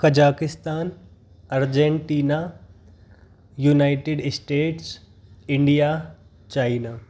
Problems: none marked